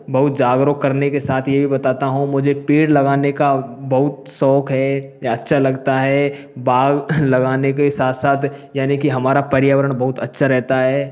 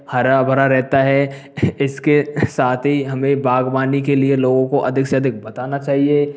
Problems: background sounds at intervals